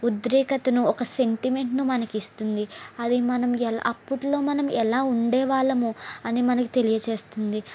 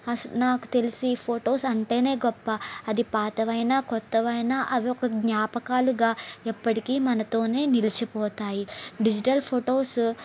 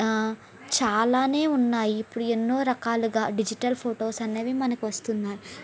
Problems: constant background noise